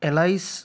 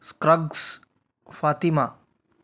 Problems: none marked